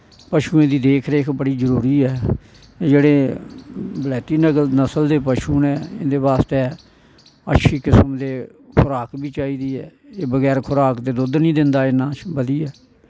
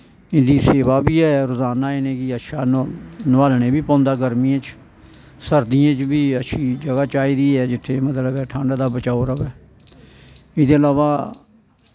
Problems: background sounds at intervals